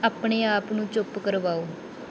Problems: background sounds at intervals